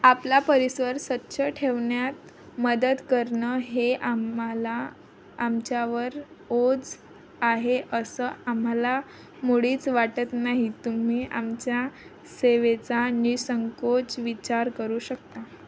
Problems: constant background noise